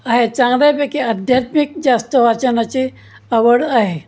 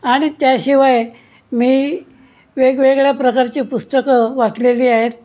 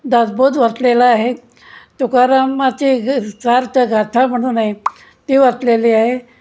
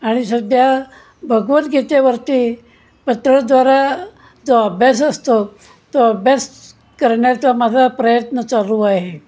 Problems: constant background noise